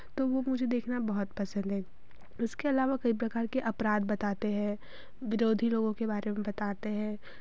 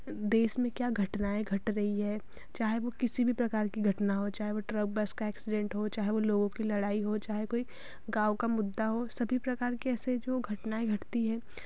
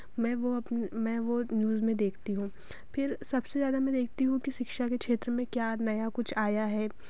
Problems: none marked